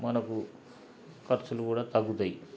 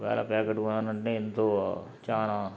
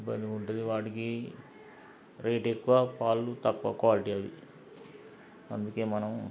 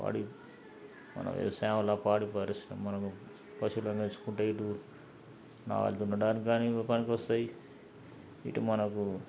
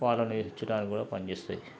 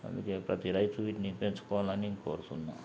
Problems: background sounds at intervals, low volume